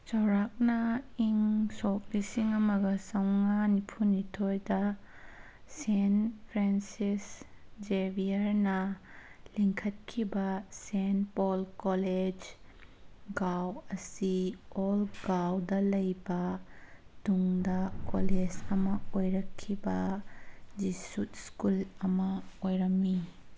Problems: none marked